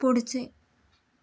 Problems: none marked